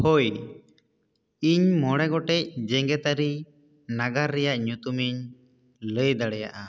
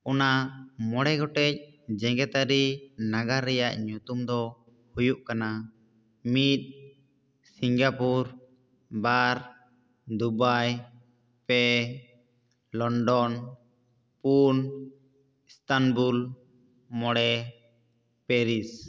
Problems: echo